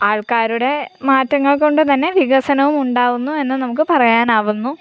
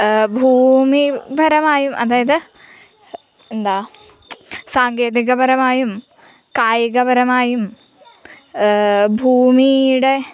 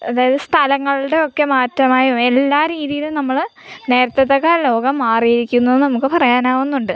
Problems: background sounds at intervals